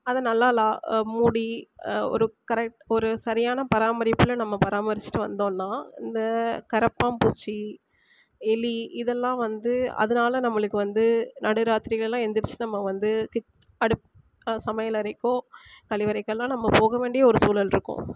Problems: none marked